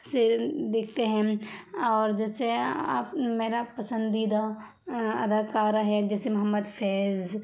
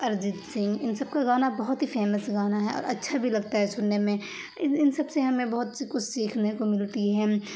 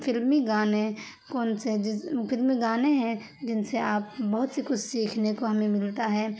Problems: constant background noise